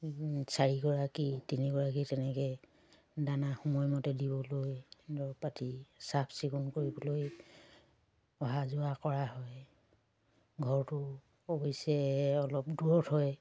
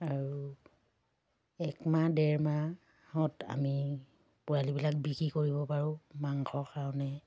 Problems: background sounds at intervals